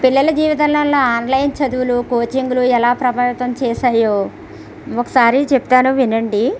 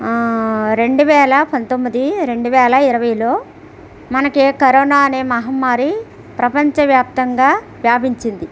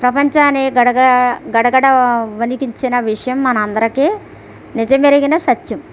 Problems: none marked